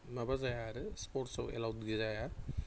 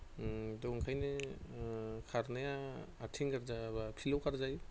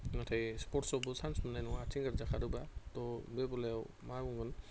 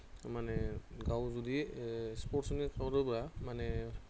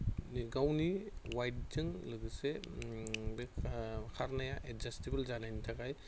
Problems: constant background noise